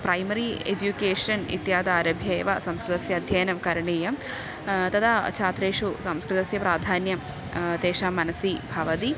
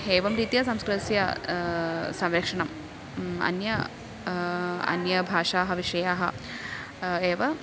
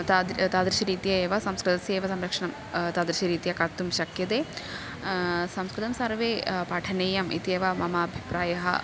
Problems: constant background noise, continuous background conversations